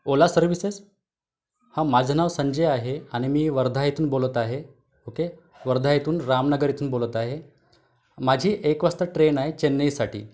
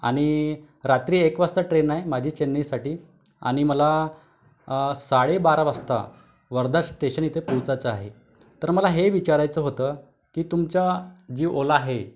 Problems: background sounds at intervals, background conversations at intervals